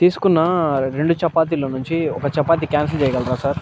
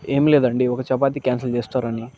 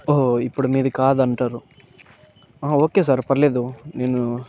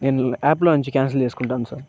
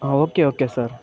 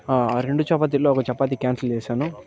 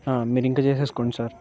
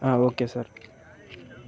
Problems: constant background noise, background conversations at intervals